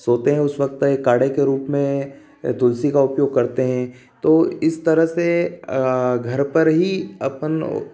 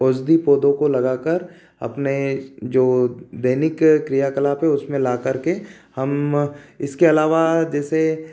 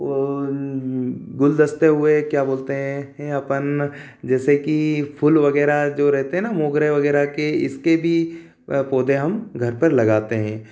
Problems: none marked